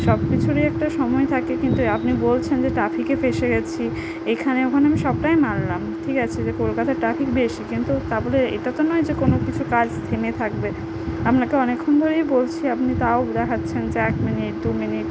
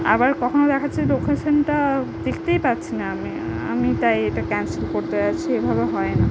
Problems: none marked